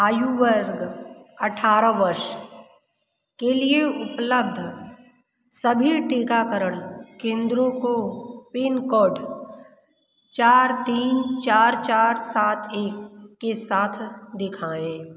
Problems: background sounds at intervals